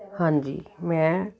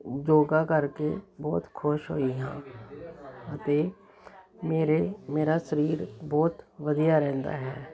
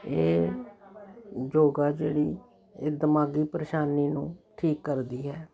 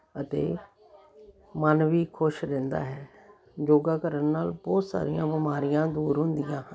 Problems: continuous background conversations